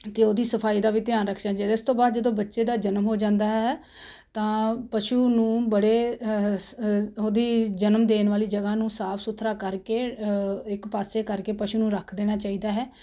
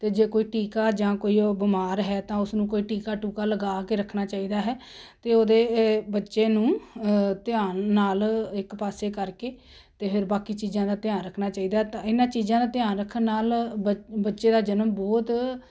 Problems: constant background noise